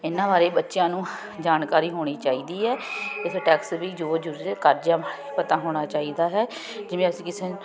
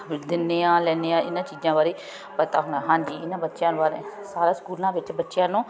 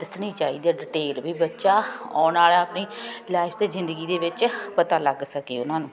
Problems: none marked